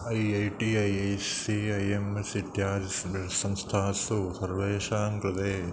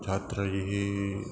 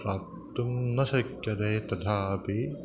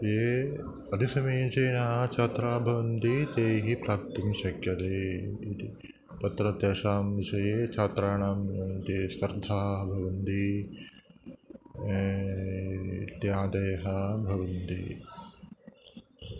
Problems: none marked